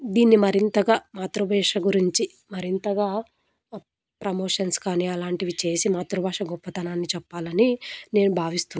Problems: background sounds at intervals